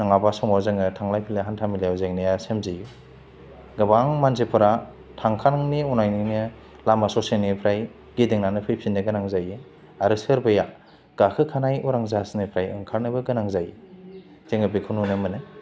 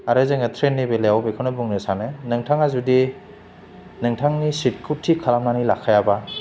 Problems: none marked